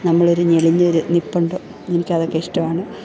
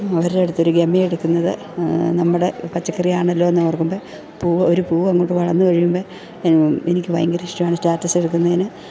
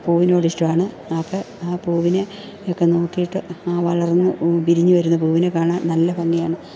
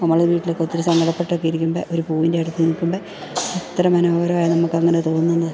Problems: background sounds at intervals, background conversations at intervals